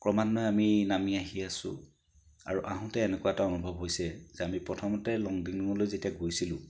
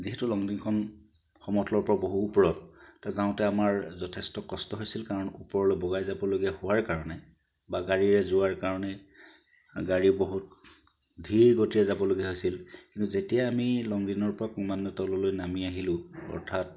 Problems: background sounds at intervals